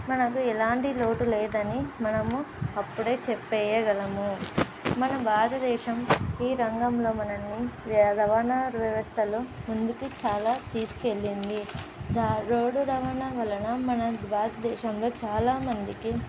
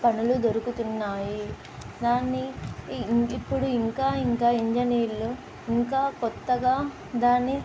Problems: constant background noise